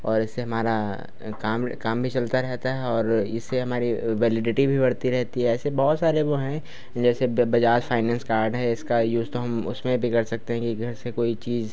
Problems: constant background noise, background conversations at intervals